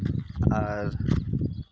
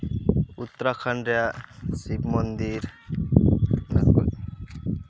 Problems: constant background noise, background conversations at intervals